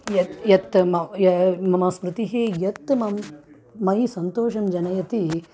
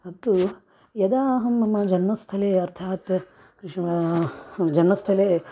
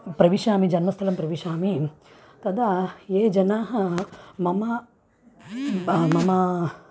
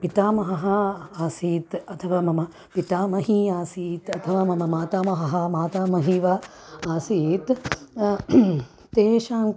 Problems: none marked